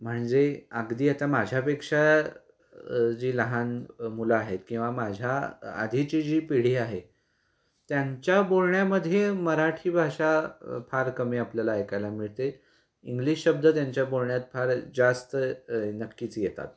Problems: constant background noise